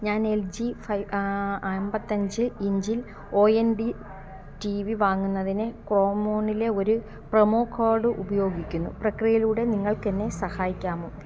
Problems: none marked